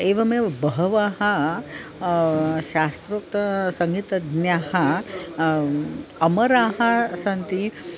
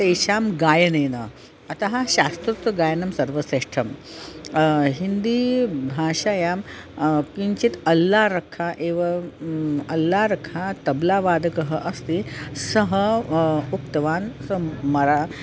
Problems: constant background noise, continuous background conversations